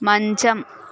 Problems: none marked